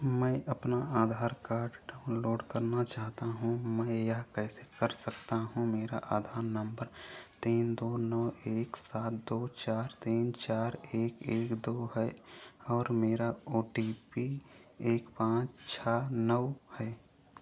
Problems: background sounds at intervals